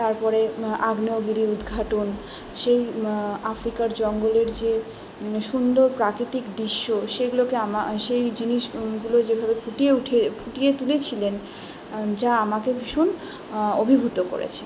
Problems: continuous background conversations